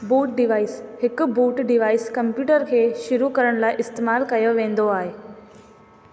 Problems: constant background noise, echo